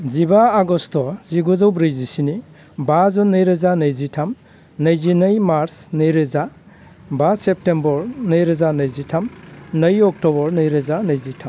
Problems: constant background noise